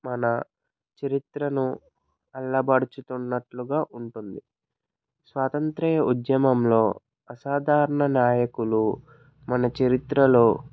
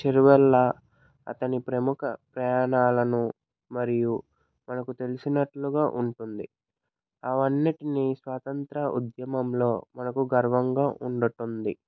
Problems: none marked